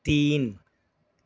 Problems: none marked